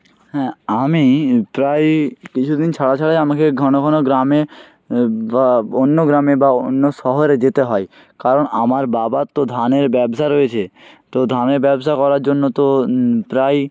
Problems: none marked